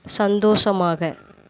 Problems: constant background noise